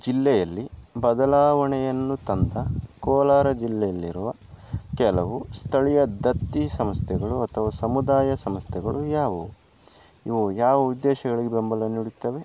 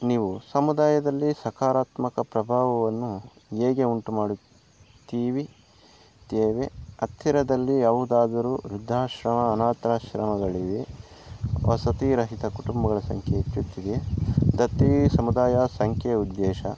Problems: background sounds at intervals